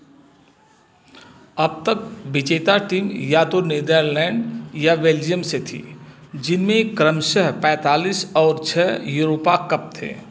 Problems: constant background noise